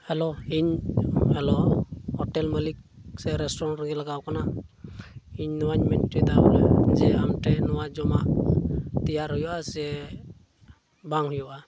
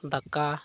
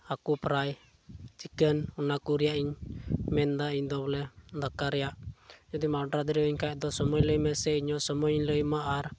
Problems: none marked